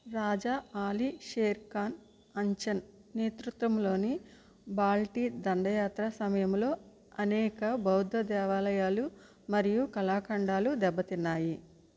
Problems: low volume